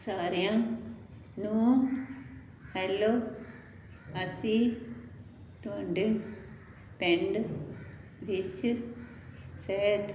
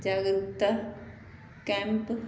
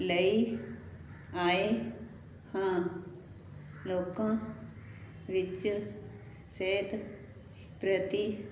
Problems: none marked